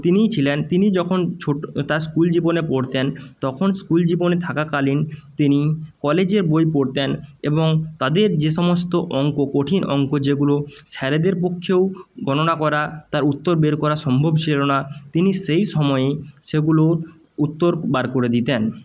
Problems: none marked